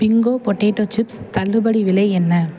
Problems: none marked